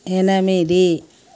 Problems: none marked